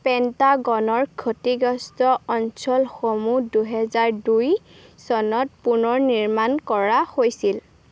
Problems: constant background noise